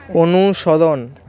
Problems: background conversations at intervals